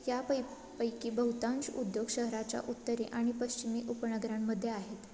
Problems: constant background noise